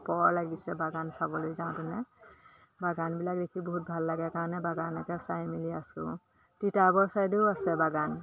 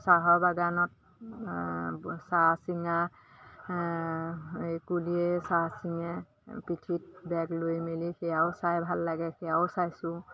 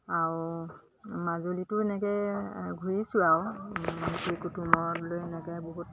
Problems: constant background noise, background conversations at intervals